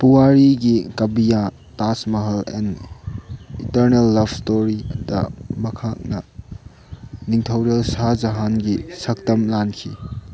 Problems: background sounds at intervals